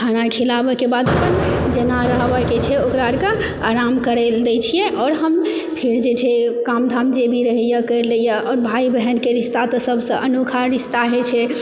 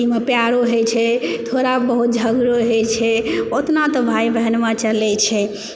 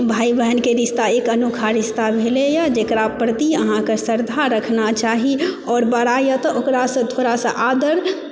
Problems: background sounds at intervals